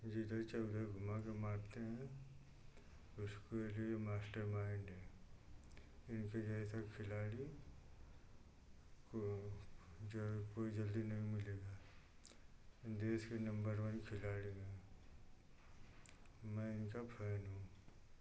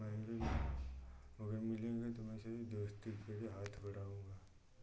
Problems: none marked